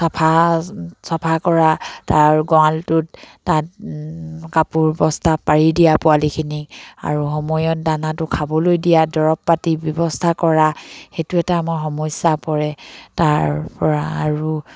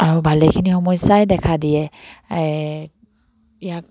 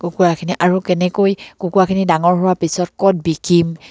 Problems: none marked